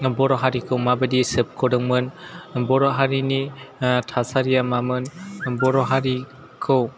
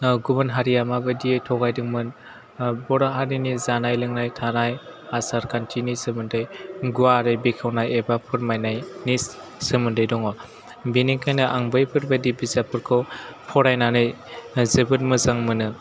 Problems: none marked